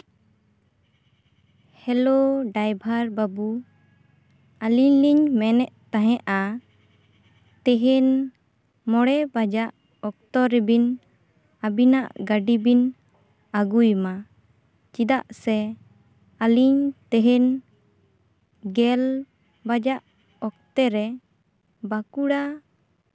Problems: background sounds at intervals